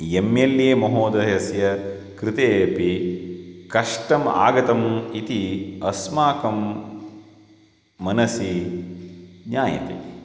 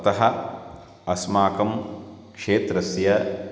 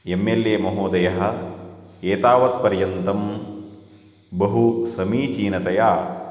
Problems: none marked